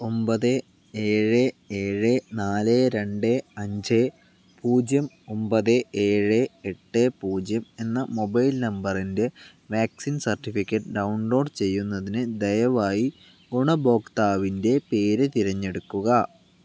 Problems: none marked